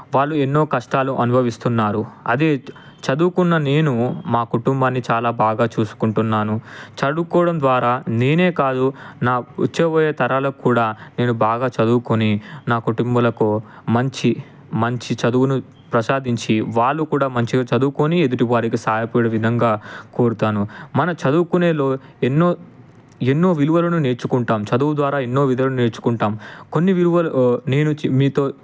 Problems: none marked